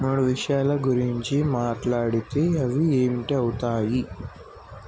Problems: constant background noise